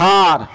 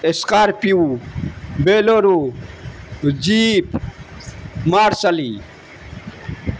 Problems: constant background noise